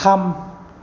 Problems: none marked